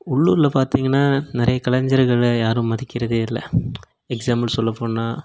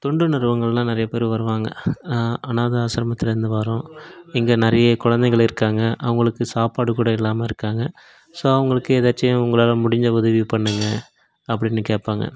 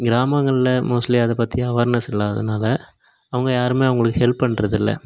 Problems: none marked